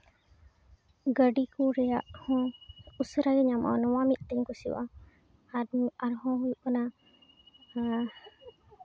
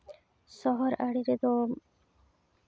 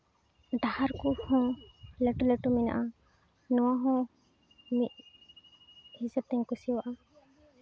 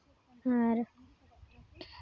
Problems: background sounds at intervals